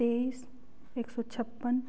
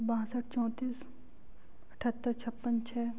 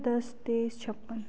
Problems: low volume